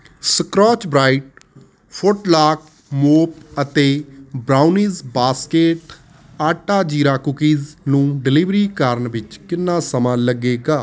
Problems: constant background noise